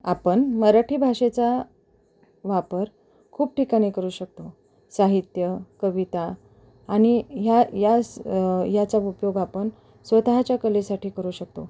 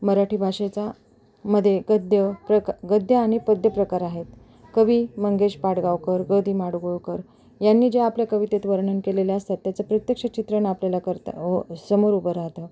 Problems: none marked